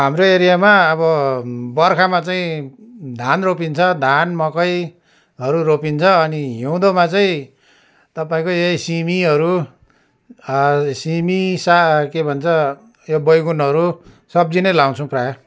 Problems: none marked